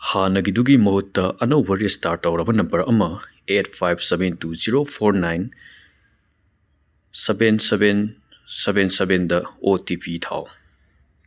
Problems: none marked